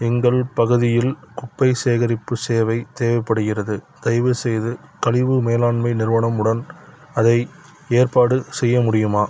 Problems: background sounds at intervals